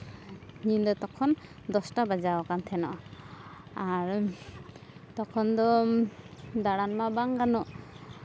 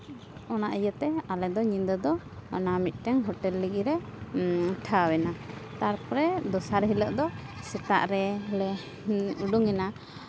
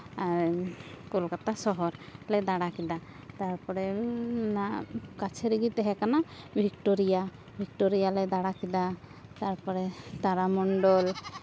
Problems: constant background noise